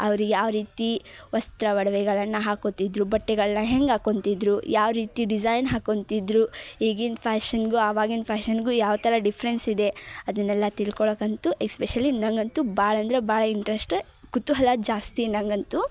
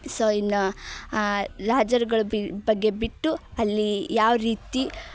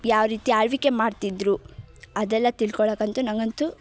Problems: none marked